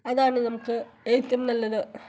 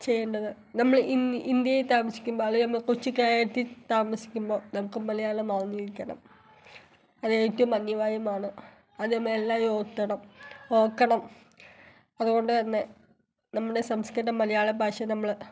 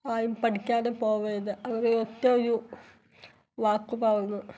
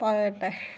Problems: background sounds at intervals